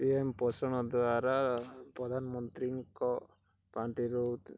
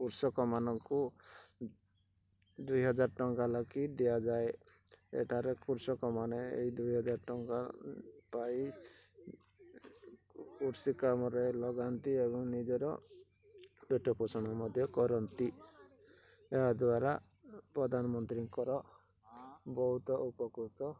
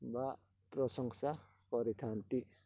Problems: low volume